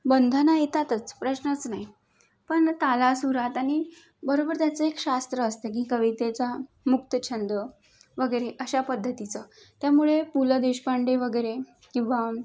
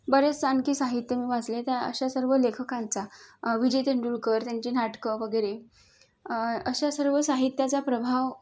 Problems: none marked